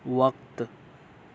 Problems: constant background noise